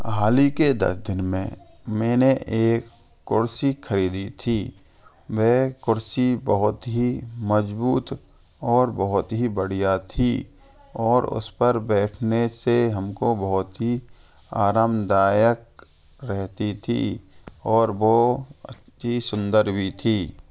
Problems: constant background noise, continuous background conversations